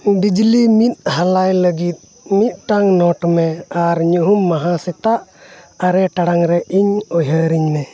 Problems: background sounds at intervals